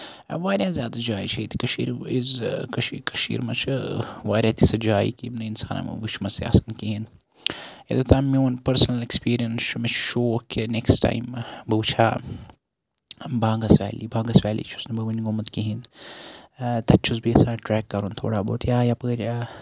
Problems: none marked